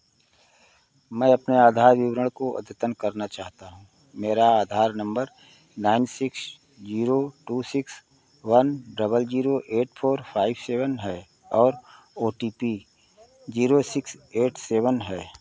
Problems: none marked